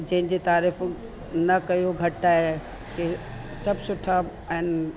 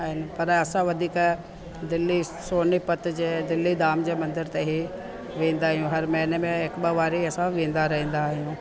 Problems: constant background noise